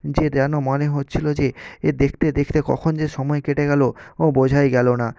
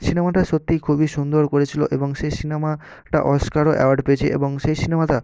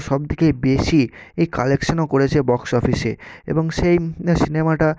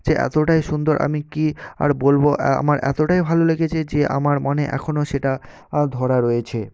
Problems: none marked